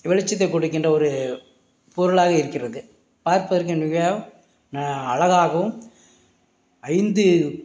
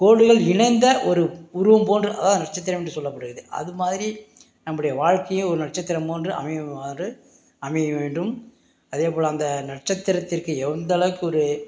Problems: background sounds at intervals